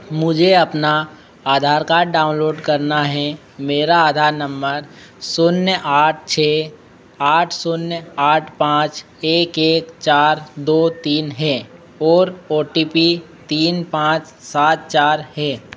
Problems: none marked